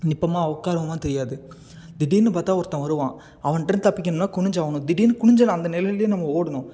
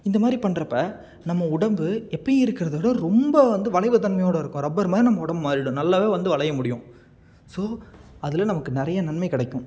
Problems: none marked